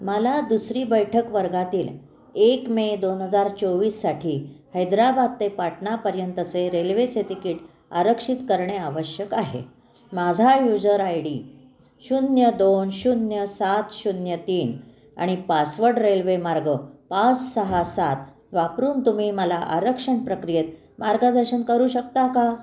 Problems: constant background noise